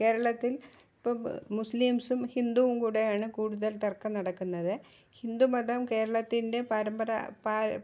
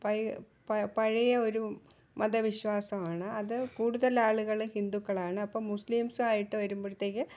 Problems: low volume